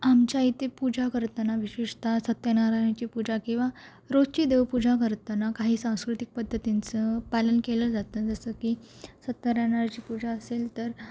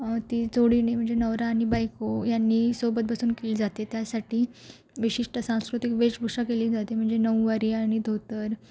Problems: background sounds at intervals